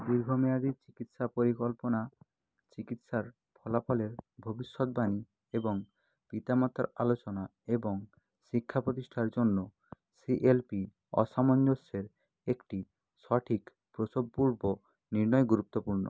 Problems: background sounds at intervals